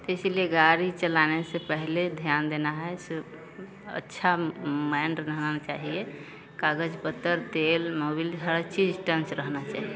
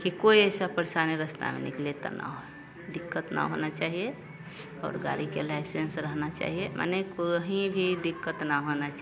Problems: none marked